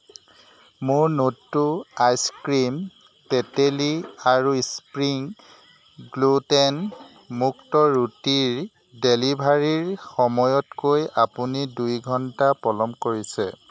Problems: constant background noise